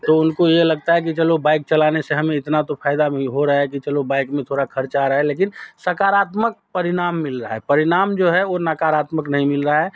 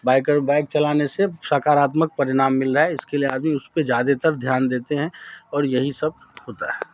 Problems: none marked